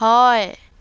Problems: none marked